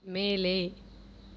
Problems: none marked